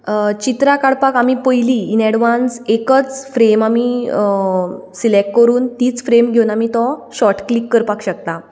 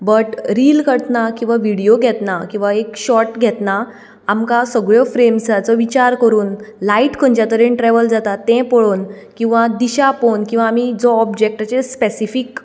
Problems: none marked